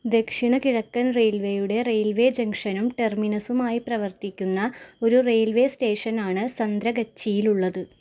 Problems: background sounds at intervals